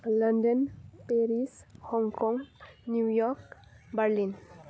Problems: low volume